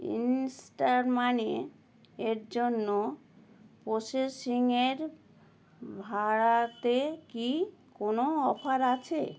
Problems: none marked